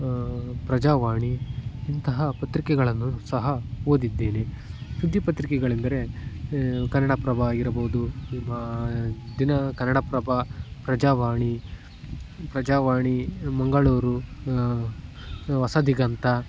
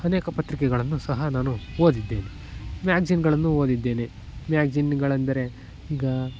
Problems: background sounds at intervals